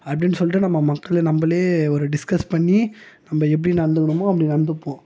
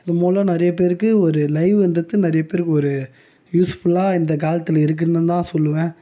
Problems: background conversations at intervals